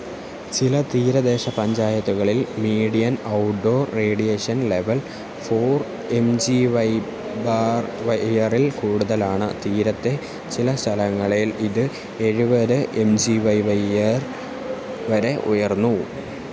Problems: constant background noise